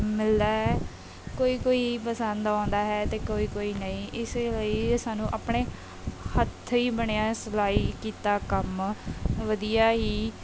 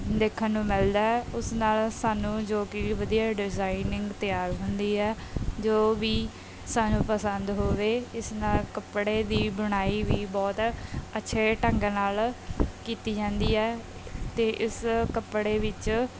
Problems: background sounds at intervals